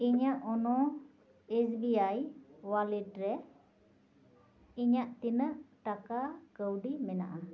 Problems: echo